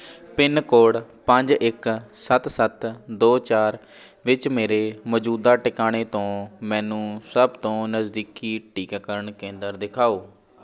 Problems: background conversations at intervals